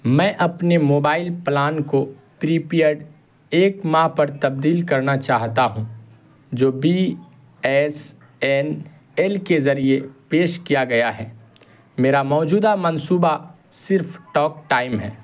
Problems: constant background noise